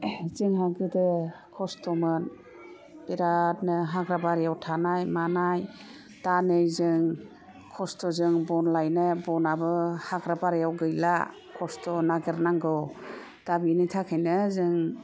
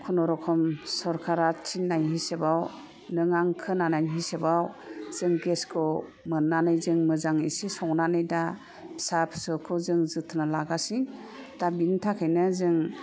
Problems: none marked